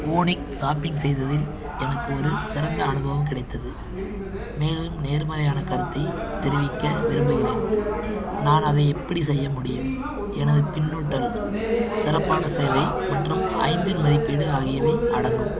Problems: constant background noise